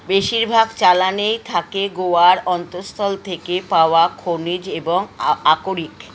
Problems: constant background noise